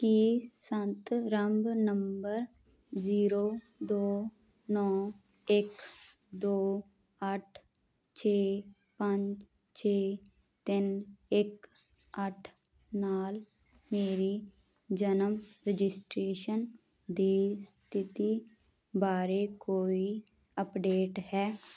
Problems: none marked